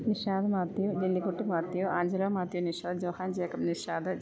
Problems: none marked